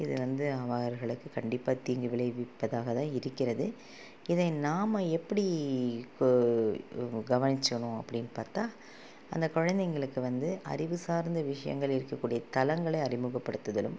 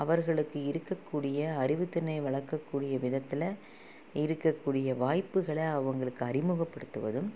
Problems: constant background noise